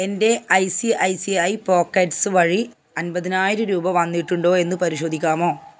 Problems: none marked